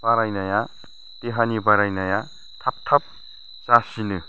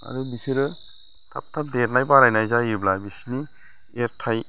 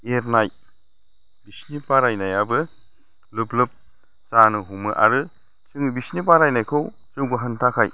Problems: none marked